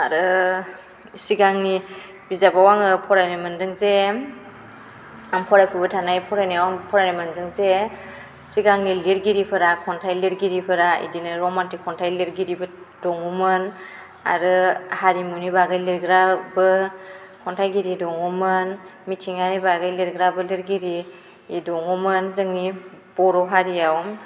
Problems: constant background noise